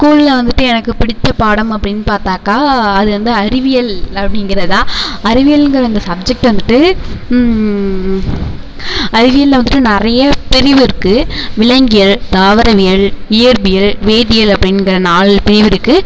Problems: none marked